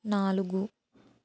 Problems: none marked